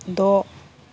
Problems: constant background noise